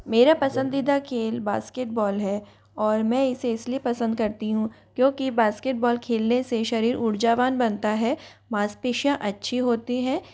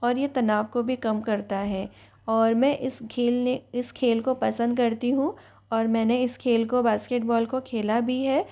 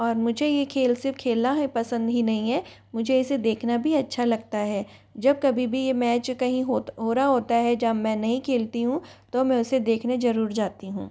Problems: constant background noise, background conversations at intervals